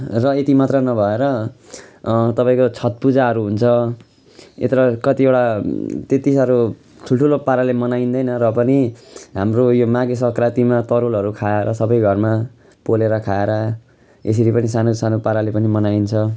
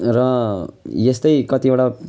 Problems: continuous background conversations